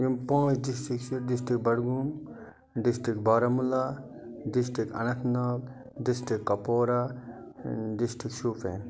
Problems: none marked